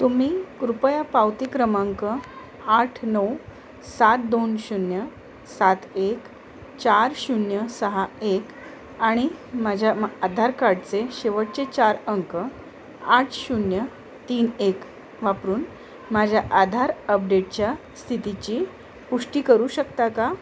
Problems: constant background noise